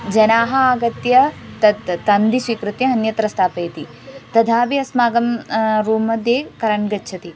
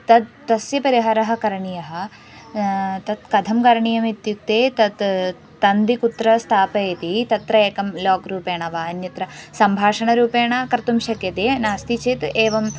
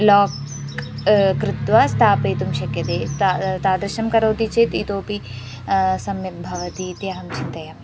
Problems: background sounds at intervals